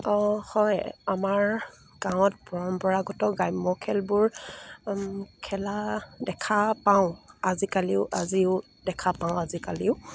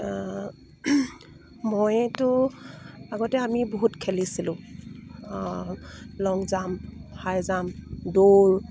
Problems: none marked